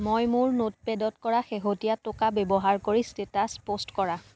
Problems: none marked